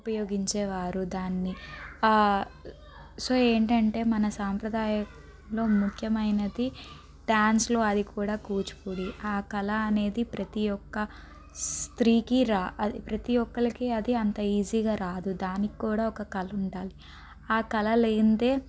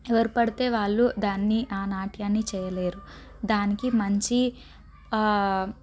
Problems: background sounds at intervals, background conversations at intervals